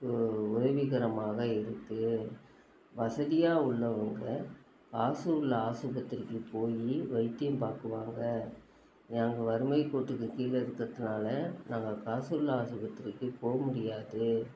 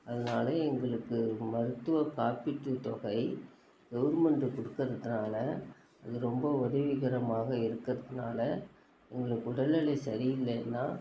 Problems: constant background noise